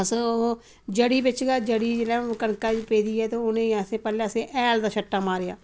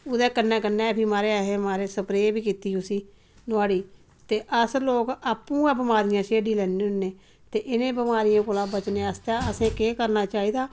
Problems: none marked